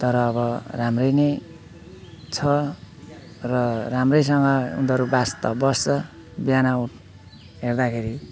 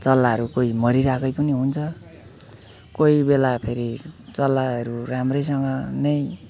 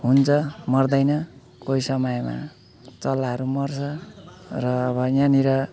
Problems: none marked